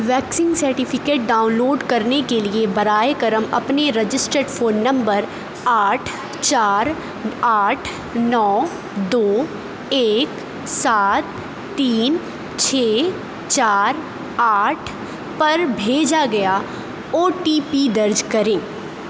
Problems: constant background noise